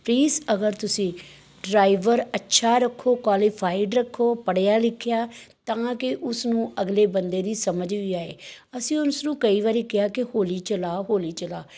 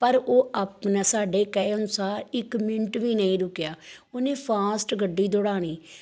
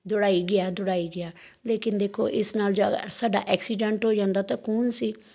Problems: background sounds at intervals